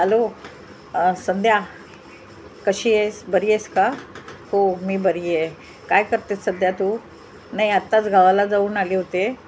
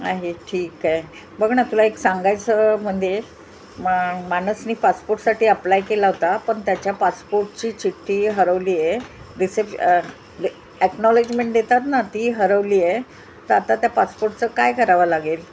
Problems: constant background noise